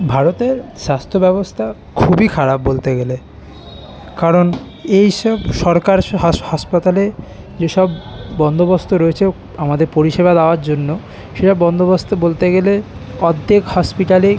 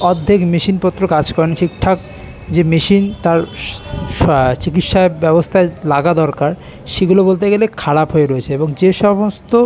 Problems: constant background noise, continuous background conversations